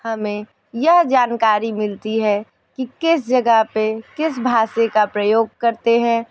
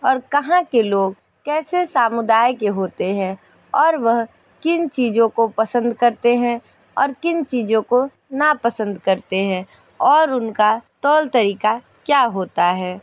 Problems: none marked